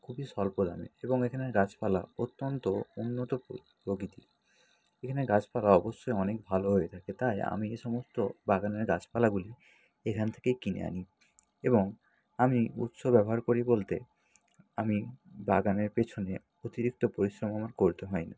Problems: constant background noise